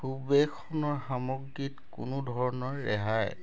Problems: background sounds at intervals